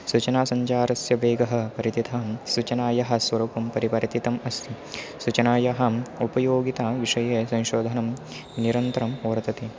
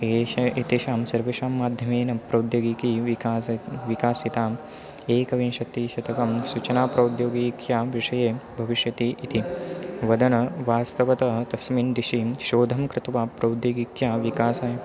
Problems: constant background noise